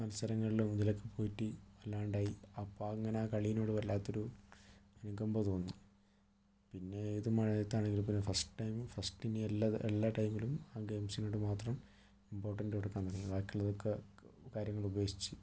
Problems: low volume